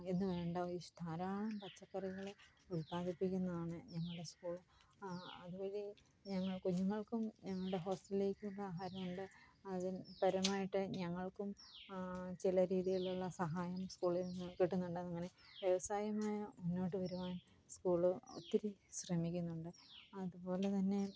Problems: low volume